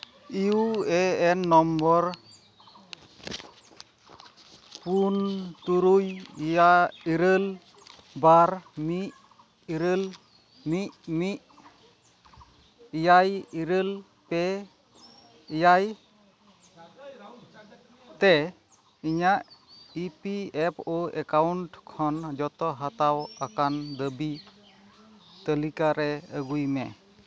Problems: none marked